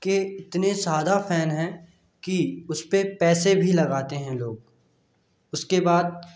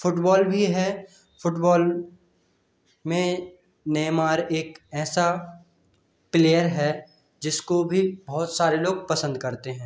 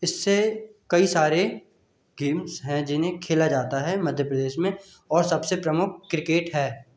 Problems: constant background noise